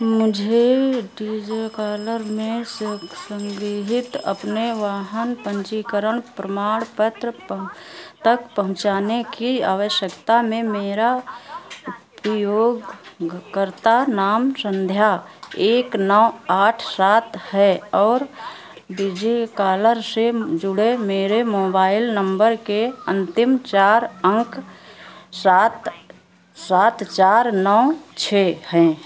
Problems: constant background noise